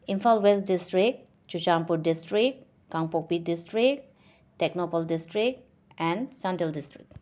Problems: none marked